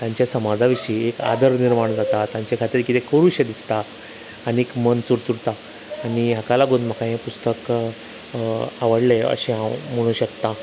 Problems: constant background noise